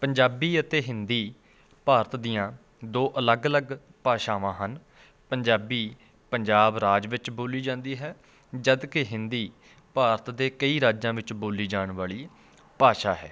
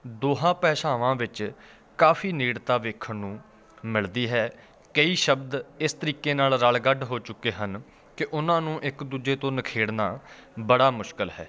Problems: constant background noise, continuous background conversations